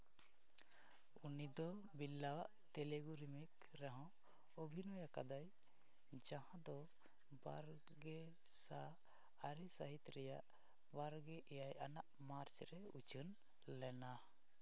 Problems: background sounds at intervals, low volume